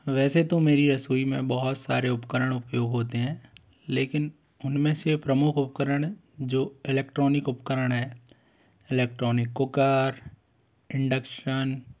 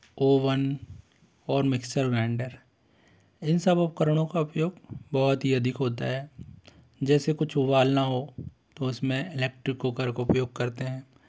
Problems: constant background noise